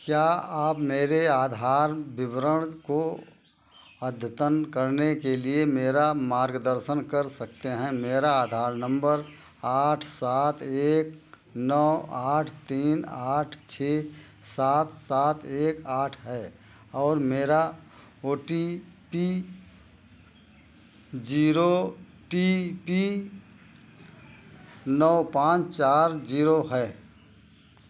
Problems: none marked